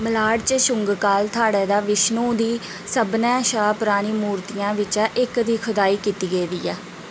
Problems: constant background noise